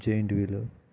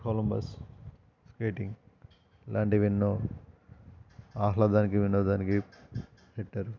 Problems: constant background noise